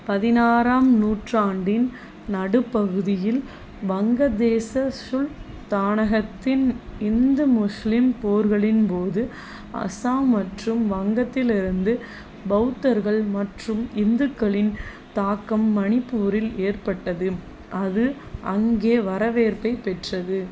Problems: constant background noise